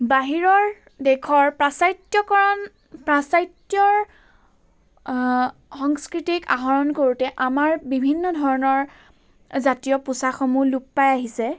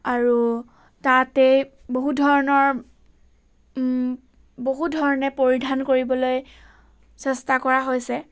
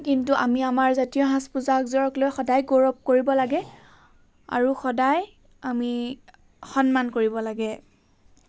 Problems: background sounds at intervals